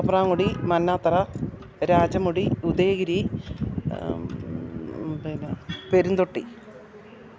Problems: constant background noise